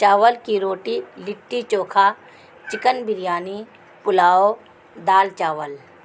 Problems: constant background noise